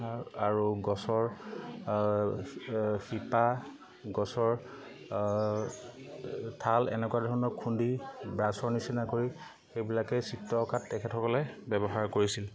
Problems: constant background noise, continuous background conversations